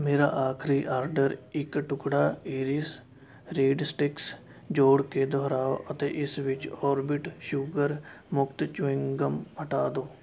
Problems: background sounds at intervals